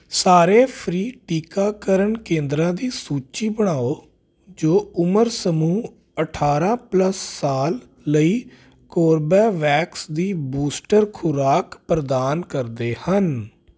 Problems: constant background noise